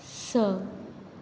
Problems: none marked